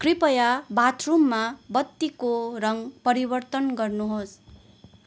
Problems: constant background noise